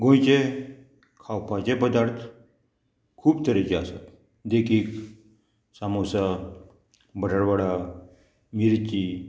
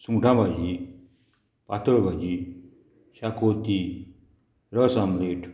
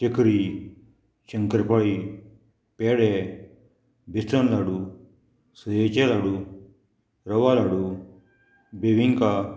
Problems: none marked